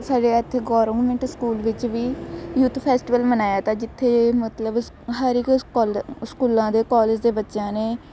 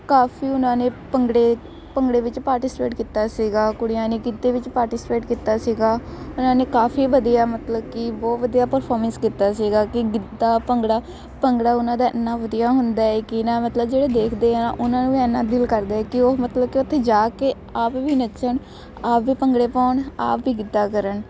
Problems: constant background noise